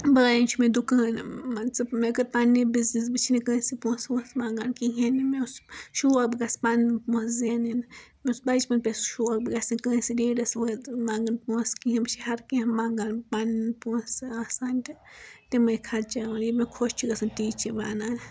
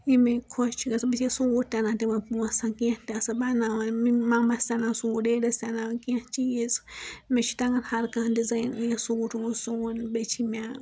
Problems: background sounds at intervals